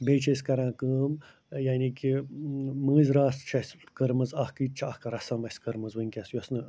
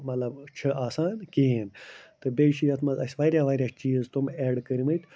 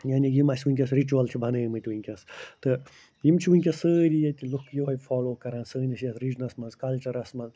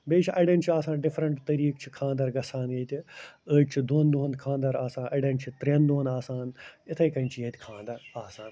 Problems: none marked